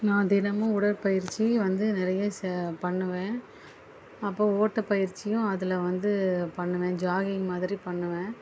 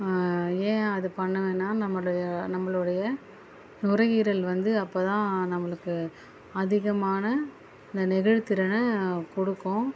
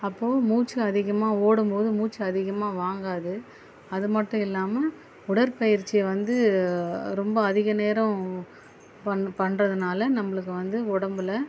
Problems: background sounds at intervals